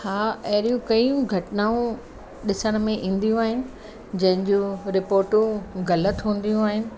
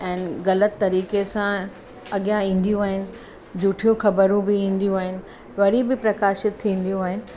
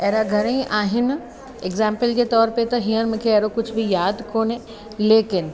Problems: constant background noise